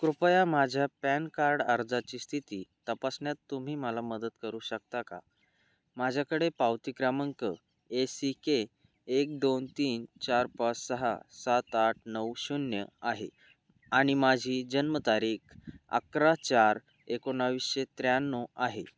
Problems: none marked